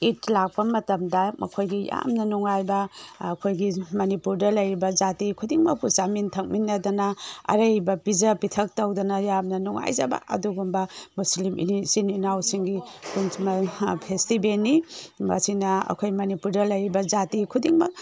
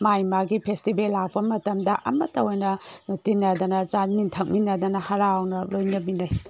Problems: background sounds at intervals